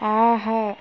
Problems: constant background noise